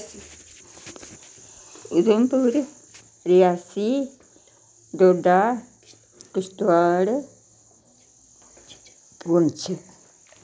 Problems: none marked